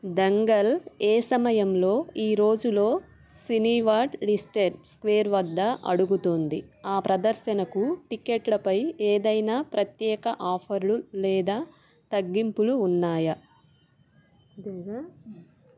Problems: constant background noise, background conversations at intervals